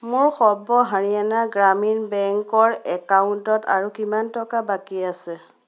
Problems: none marked